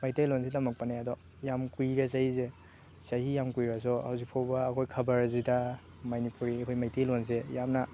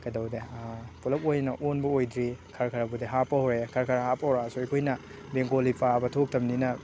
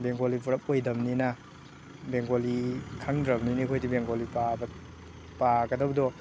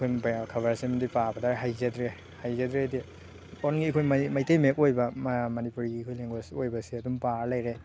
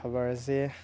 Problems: background sounds at intervals, background conversations at intervals